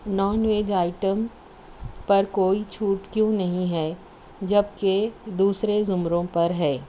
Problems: none marked